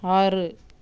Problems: background sounds at intervals